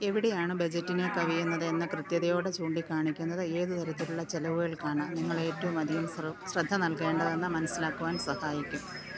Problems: none marked